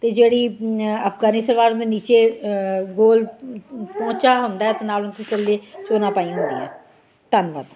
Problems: constant background noise, continuous background conversations